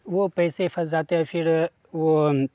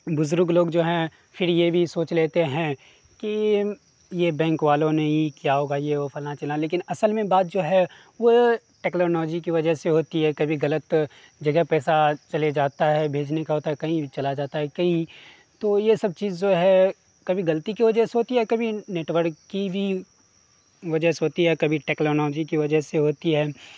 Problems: constant background noise